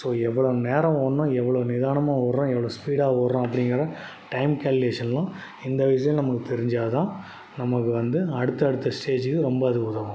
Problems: background sounds at intervals